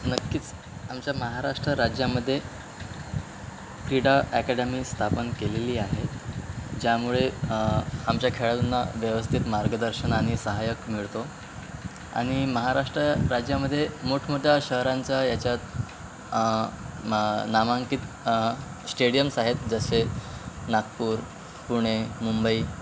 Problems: constant background noise